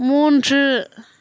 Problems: none marked